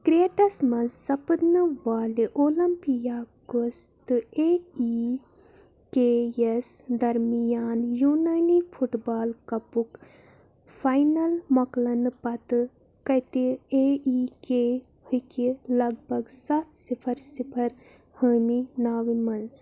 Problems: background sounds at intervals